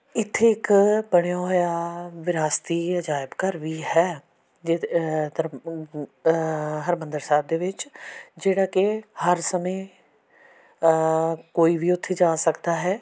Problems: background sounds at intervals